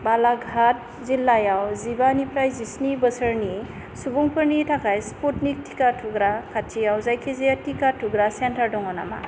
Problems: constant background noise